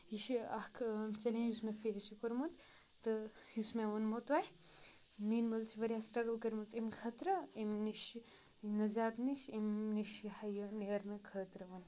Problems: constant background noise